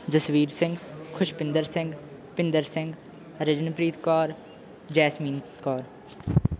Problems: background sounds at intervals